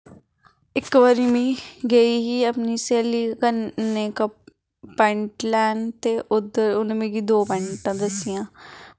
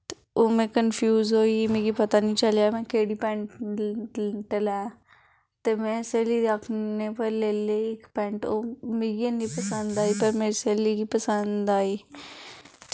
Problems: background conversations at intervals